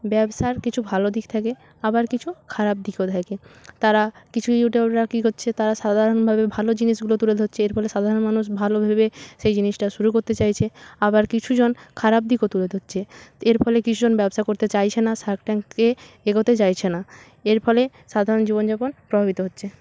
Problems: none marked